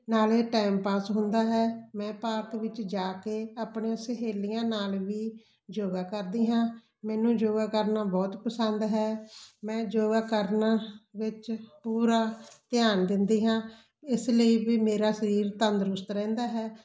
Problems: constant background noise